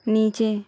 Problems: none marked